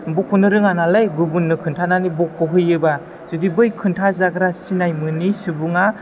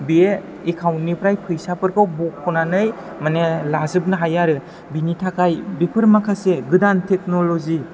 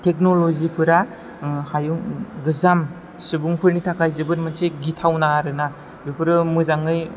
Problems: low volume